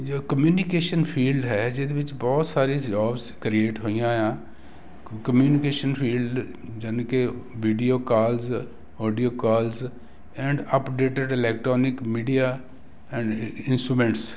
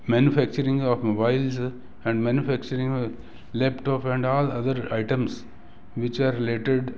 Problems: none marked